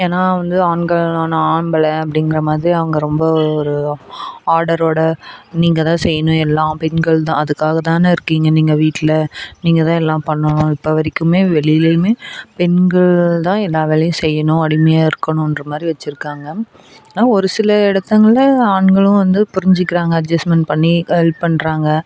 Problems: none marked